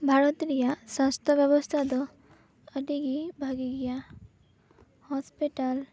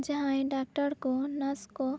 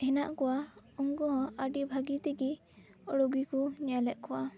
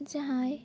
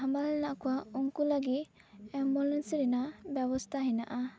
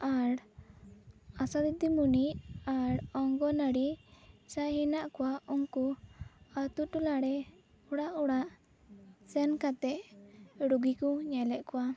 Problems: background conversations at intervals